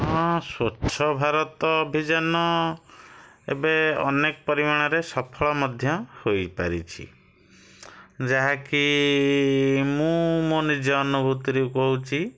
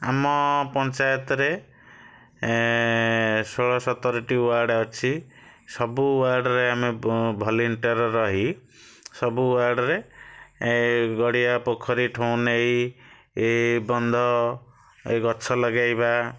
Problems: none marked